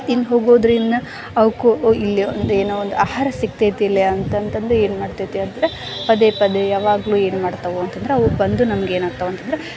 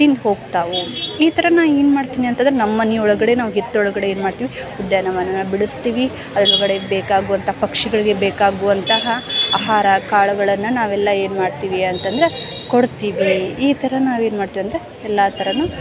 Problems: background sounds at intervals